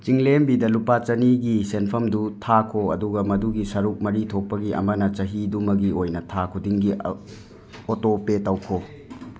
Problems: background sounds at intervals, background conversations at intervals